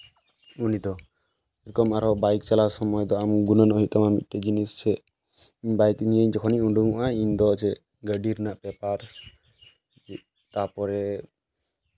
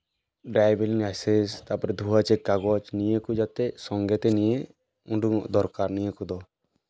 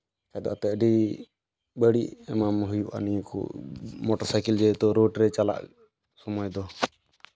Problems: background sounds at intervals, background conversations at intervals